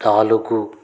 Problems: constant background noise